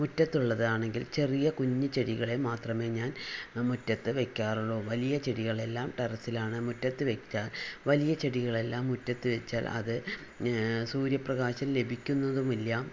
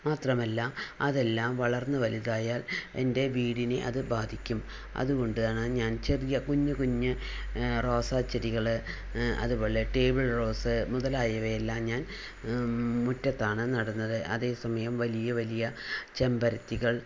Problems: none marked